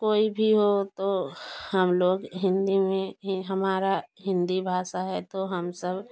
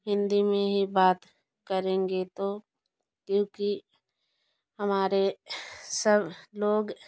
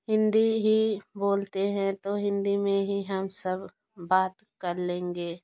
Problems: constant background noise